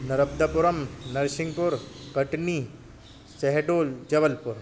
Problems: constant background noise